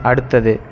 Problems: none marked